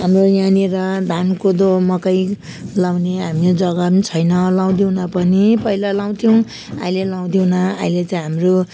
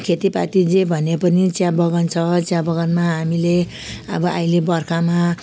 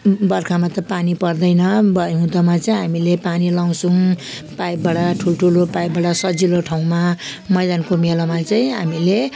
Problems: constant background noise